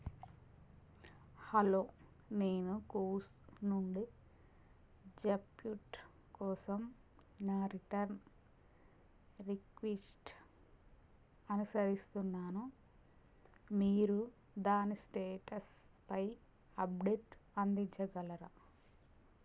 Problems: constant background noise, low volume